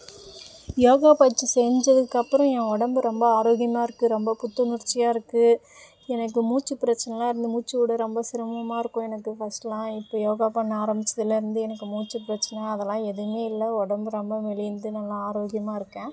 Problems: constant background noise